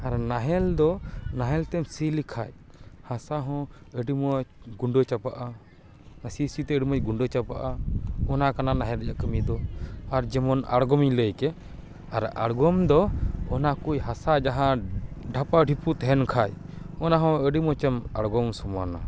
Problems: none marked